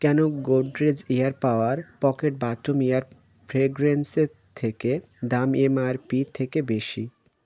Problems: constant background noise